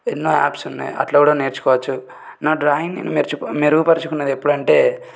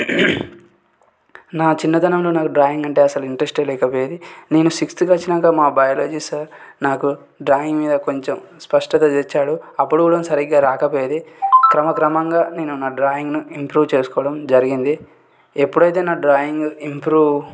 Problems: none marked